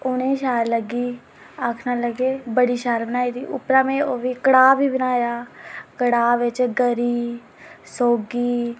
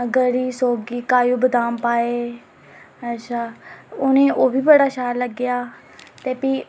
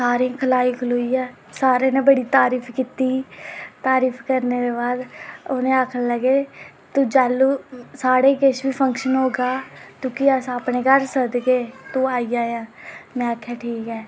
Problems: none marked